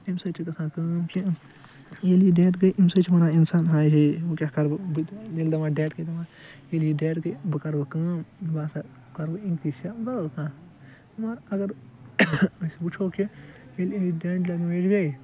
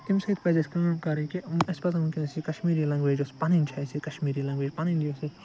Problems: constant background noise